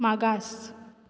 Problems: none marked